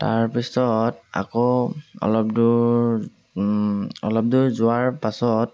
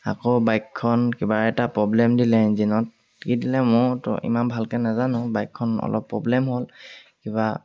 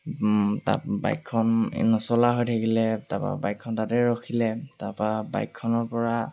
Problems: none marked